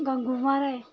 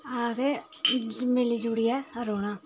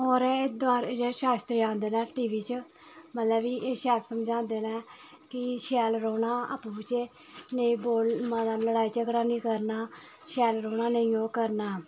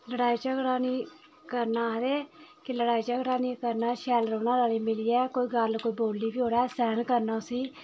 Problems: constant background noise, continuous background conversations